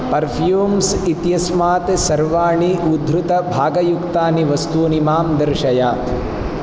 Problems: constant background noise